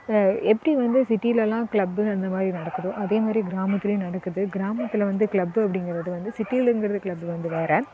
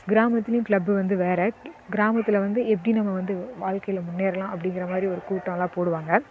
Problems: none marked